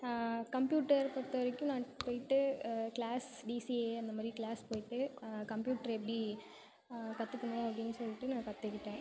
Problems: background sounds at intervals, continuous background conversations